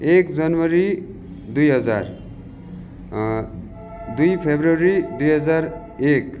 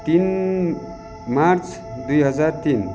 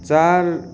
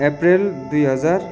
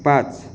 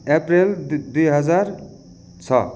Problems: background sounds at intervals